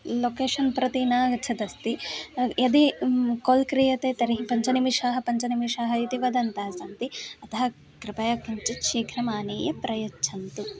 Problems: continuous background conversations